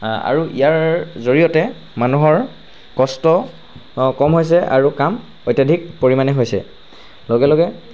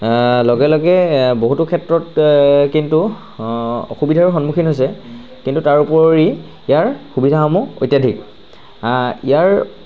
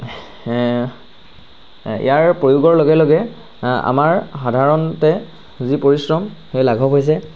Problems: constant background noise